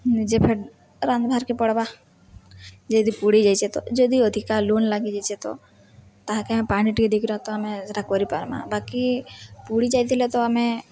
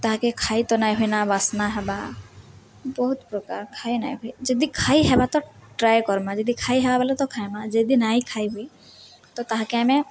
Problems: none marked